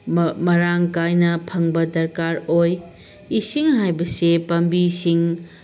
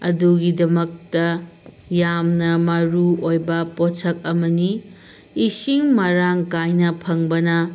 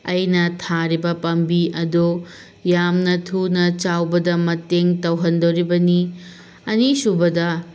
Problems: constant background noise